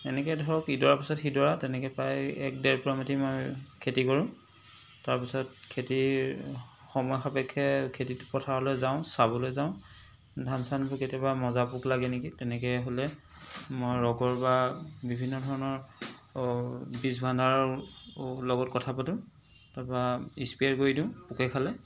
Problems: background sounds at intervals, background conversations at intervals